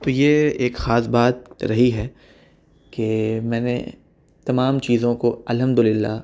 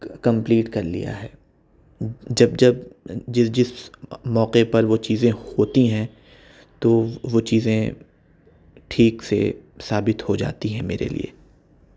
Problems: none marked